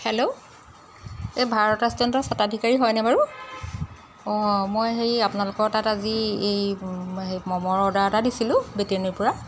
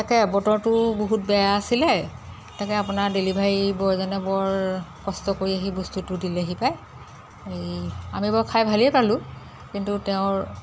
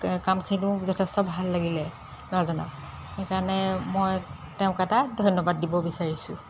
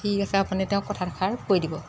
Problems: none marked